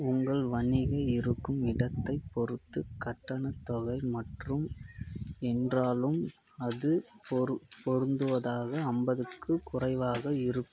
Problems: constant background noise